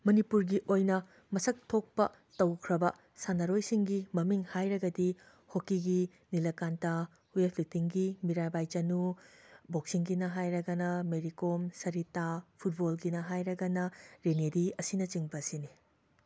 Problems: background sounds at intervals